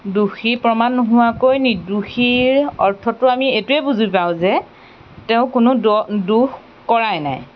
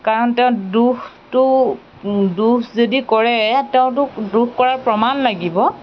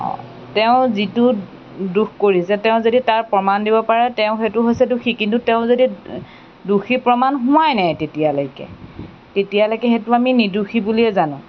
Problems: background sounds at intervals